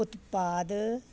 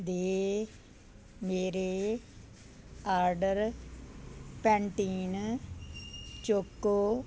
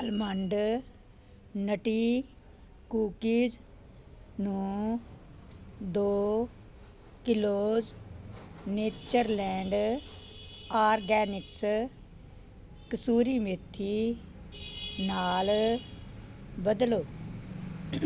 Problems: none marked